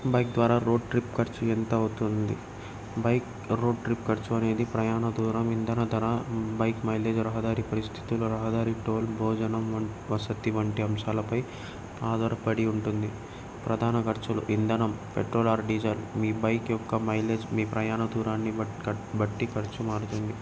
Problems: none marked